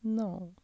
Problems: low volume